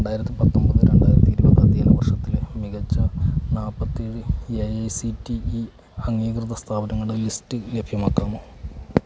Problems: constant background noise, low volume